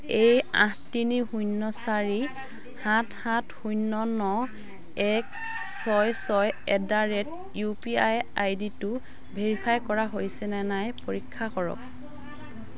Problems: constant background noise, continuous background conversations